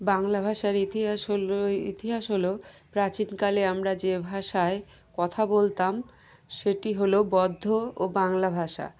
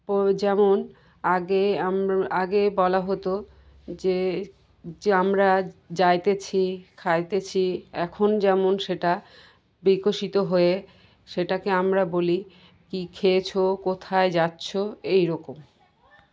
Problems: background conversations at intervals